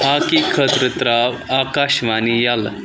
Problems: constant background noise